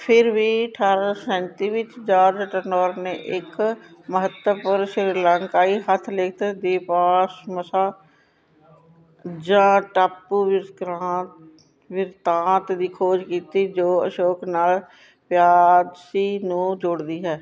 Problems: constant background noise